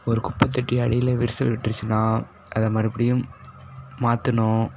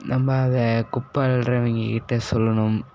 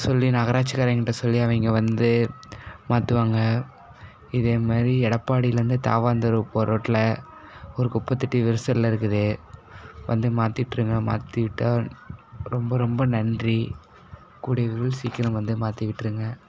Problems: none marked